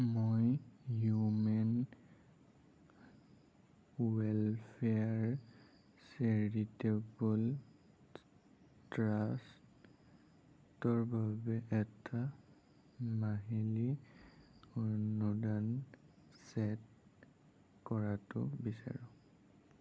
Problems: low volume